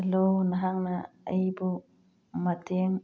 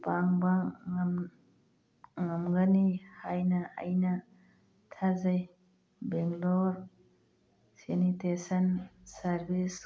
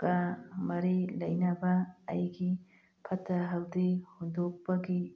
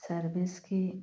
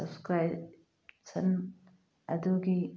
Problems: background sounds at intervals